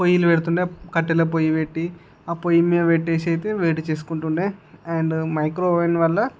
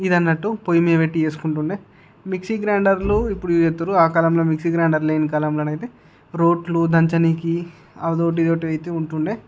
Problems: none marked